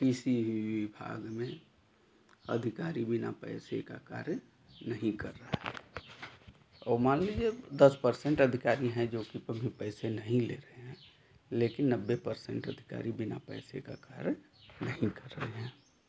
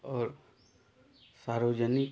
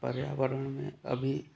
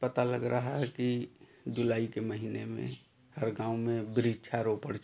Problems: none marked